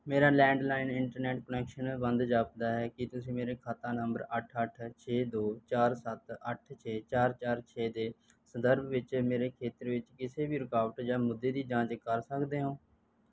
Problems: background sounds at intervals